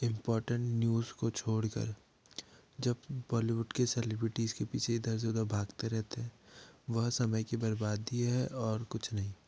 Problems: low volume